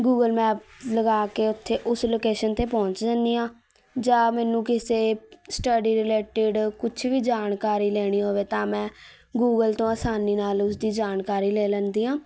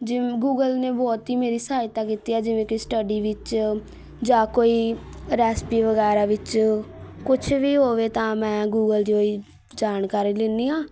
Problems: none marked